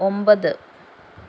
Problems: none marked